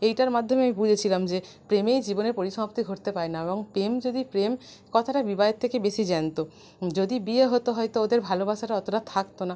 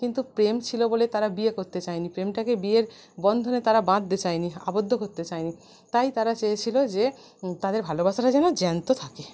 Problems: none marked